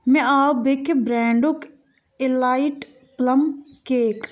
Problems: none marked